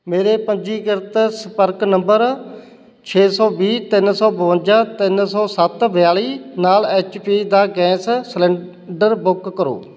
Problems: constant background noise